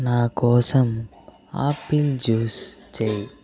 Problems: constant background noise